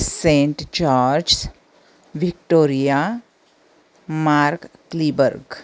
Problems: none marked